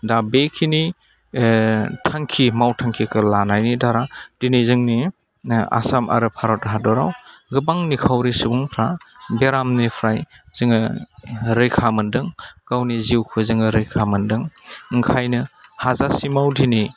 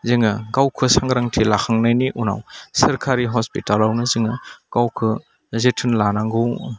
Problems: low volume